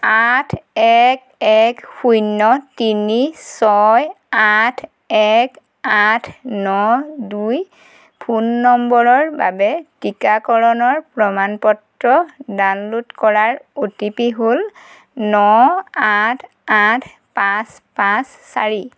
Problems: none marked